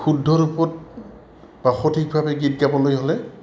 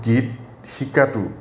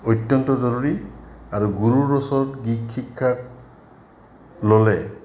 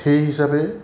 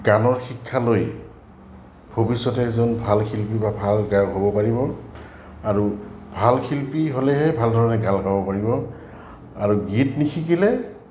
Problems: constant background noise, background conversations at intervals